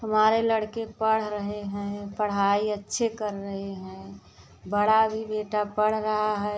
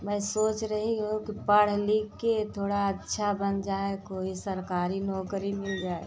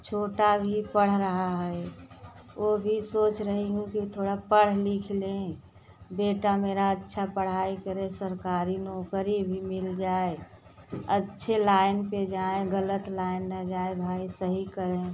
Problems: none marked